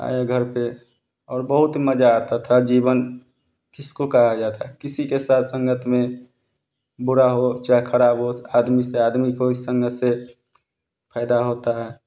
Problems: constant background noise